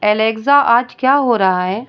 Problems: constant background noise